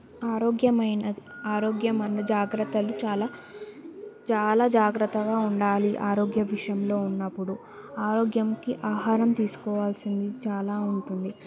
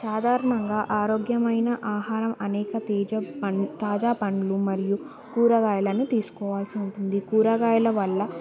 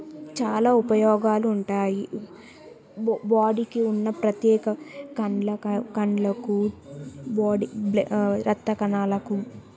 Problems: background conversations at intervals